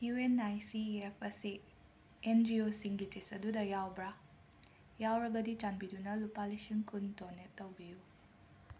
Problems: constant background noise